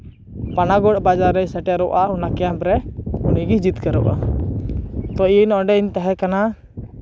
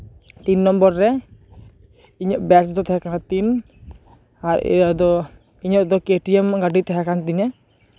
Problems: background sounds at intervals